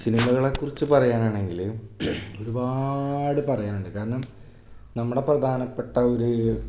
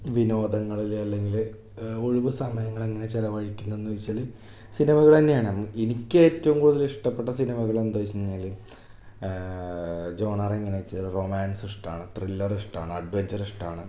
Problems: background sounds at intervals